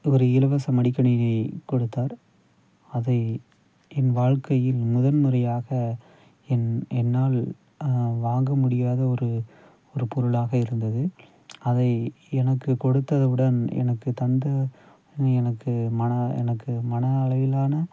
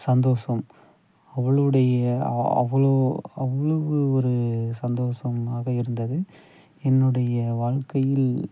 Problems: background sounds at intervals, low volume